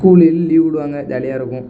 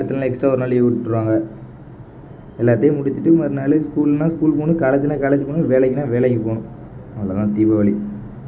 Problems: background sounds at intervals